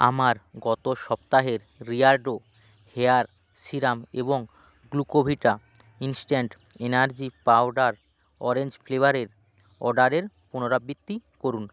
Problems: none marked